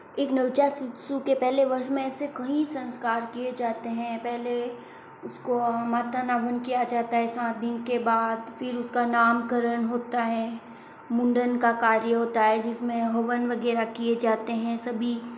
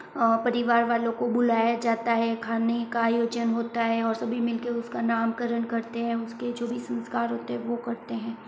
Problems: constant background noise